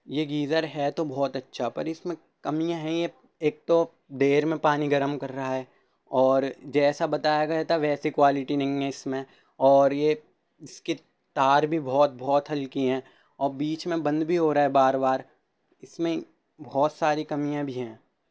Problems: constant background noise